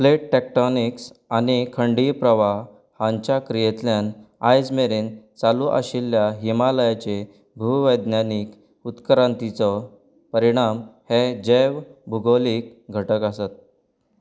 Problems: background sounds at intervals